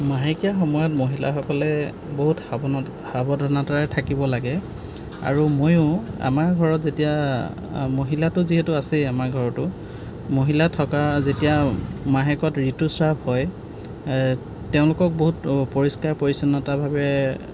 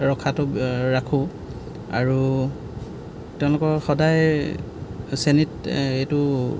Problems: background sounds at intervals